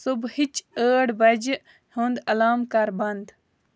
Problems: none marked